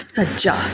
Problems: constant background noise